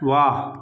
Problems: none marked